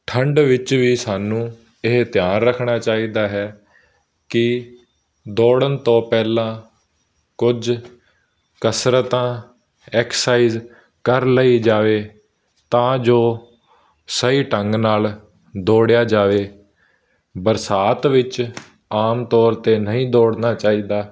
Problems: background sounds at intervals